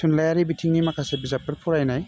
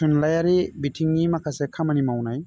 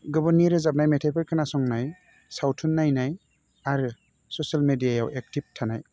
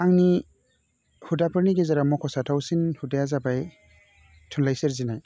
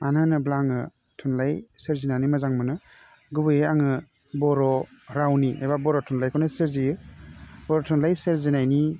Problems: none marked